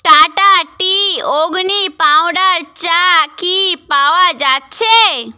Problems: none marked